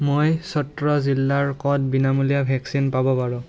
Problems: continuous background conversations